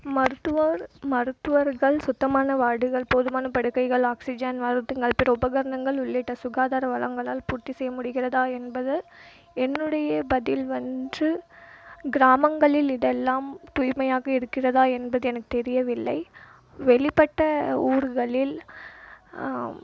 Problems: none marked